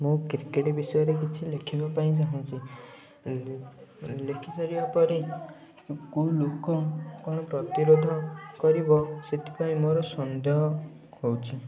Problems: constant background noise, continuous background conversations